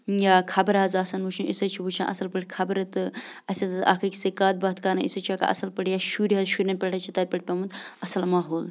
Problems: constant background noise